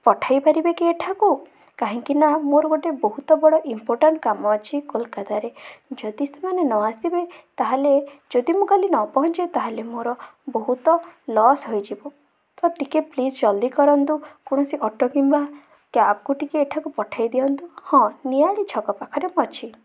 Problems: none marked